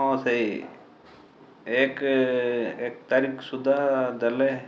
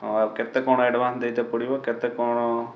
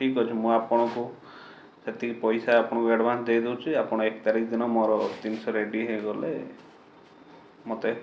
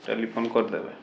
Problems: background sounds at intervals